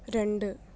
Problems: none marked